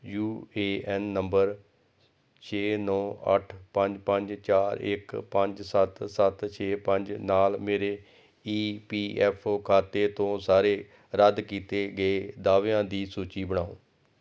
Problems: background conversations at intervals